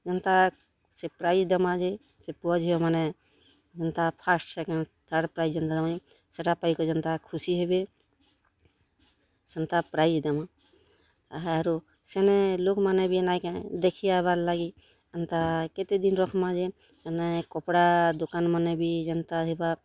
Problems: constant background noise, continuous background conversations